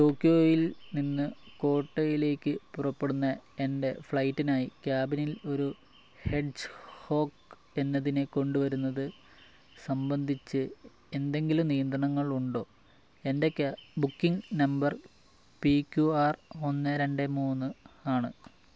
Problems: low volume